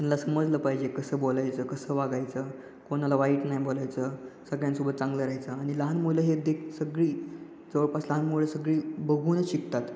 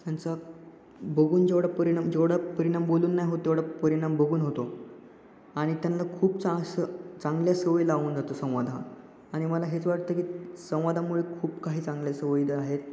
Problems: constant background noise, echo